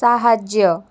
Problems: none marked